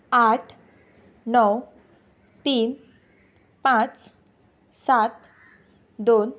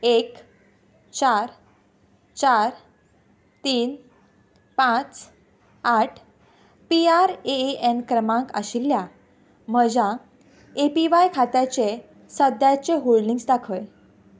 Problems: background sounds at intervals